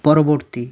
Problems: none marked